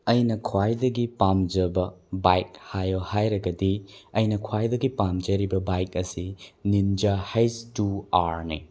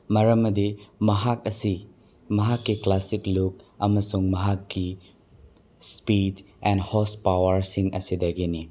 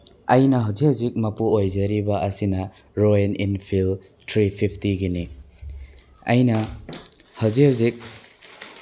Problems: background sounds at intervals